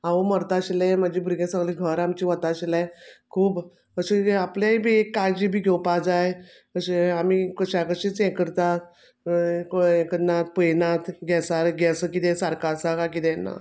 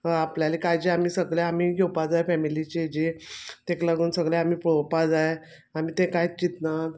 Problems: background sounds at intervals